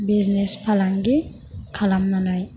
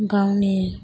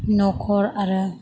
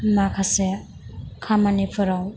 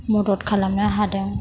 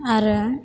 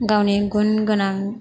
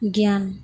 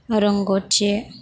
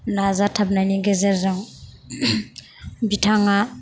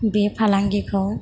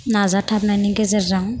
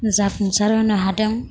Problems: constant background noise